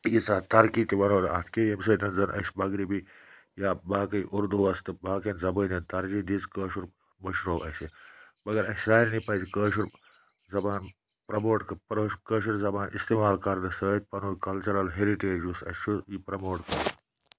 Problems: none marked